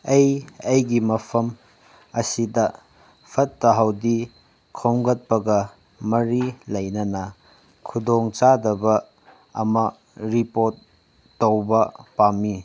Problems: none marked